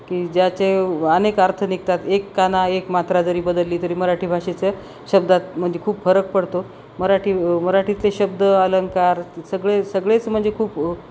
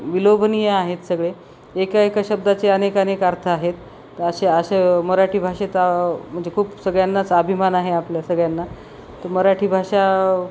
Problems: none marked